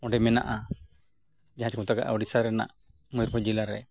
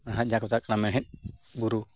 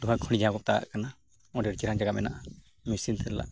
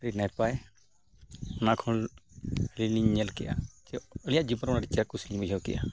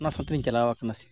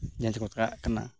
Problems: background sounds at intervals, background conversations at intervals